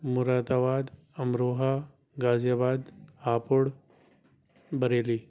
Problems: background sounds at intervals